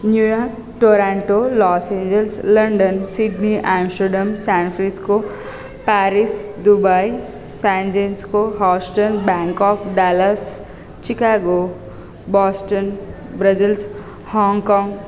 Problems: background sounds at intervals